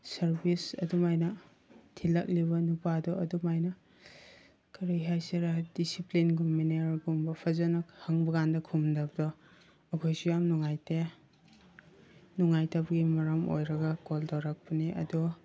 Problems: background sounds at intervals